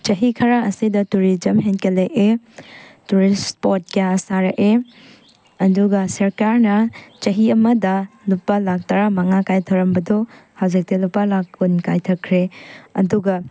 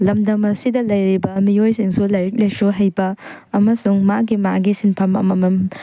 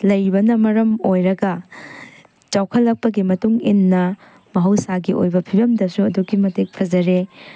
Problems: background sounds at intervals